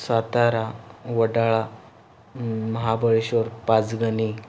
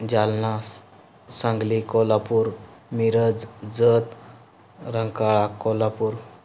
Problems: background sounds at intervals